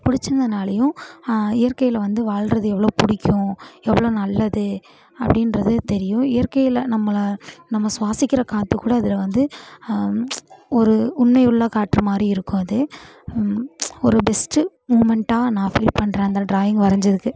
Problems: background sounds at intervals